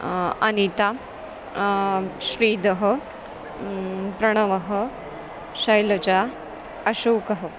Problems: none marked